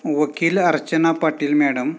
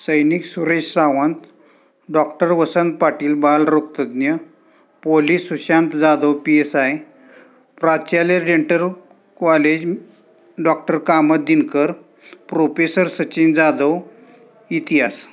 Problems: constant background noise